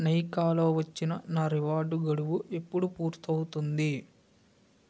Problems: none marked